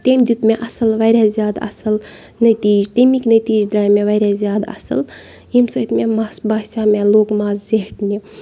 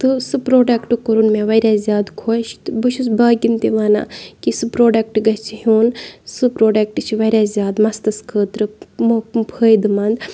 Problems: background sounds at intervals, background conversations at intervals